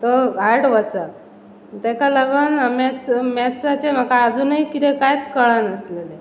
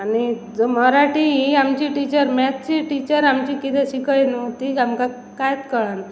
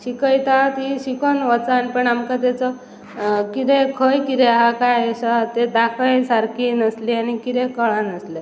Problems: constant background noise